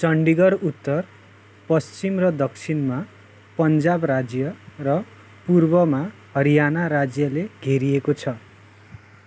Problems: none marked